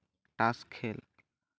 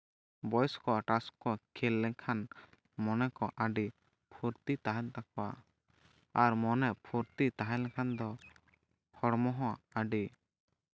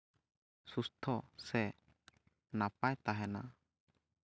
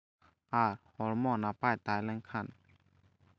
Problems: none marked